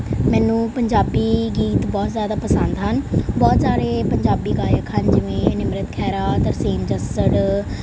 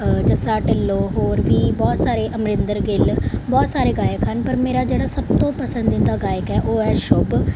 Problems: background sounds at intervals